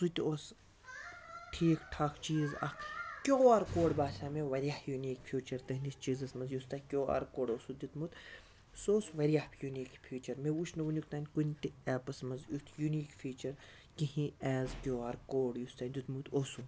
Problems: constant background noise